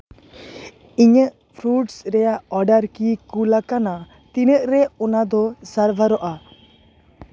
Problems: none marked